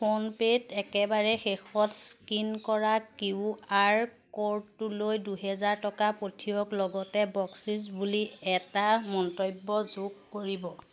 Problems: constant background noise